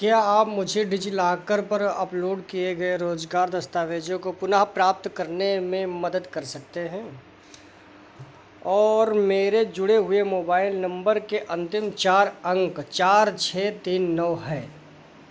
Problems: constant background noise